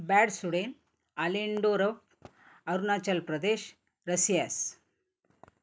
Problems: none marked